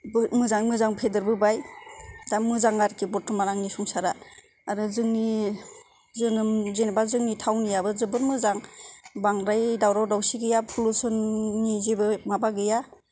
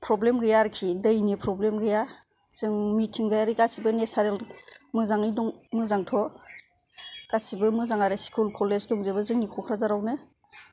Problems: none marked